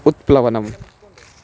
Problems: background sounds at intervals